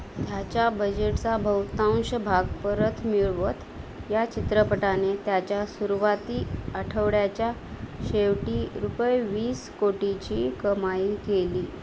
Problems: constant background noise